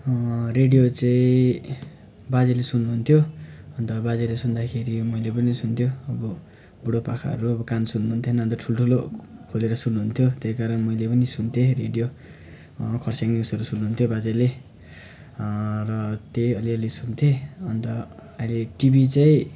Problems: background sounds at intervals